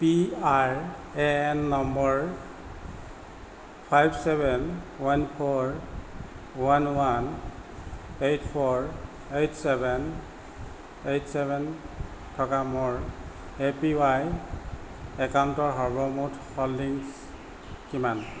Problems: constant background noise